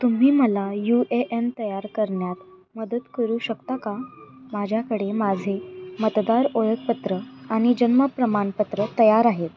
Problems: constant background noise